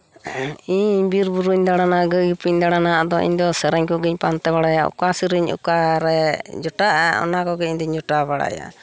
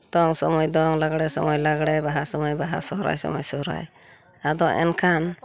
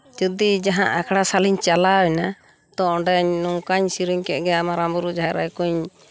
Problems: background sounds at intervals